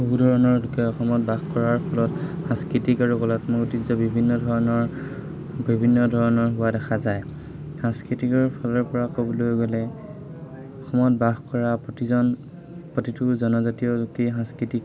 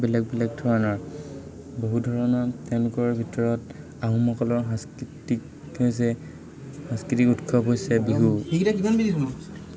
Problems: constant background noise, continuous background conversations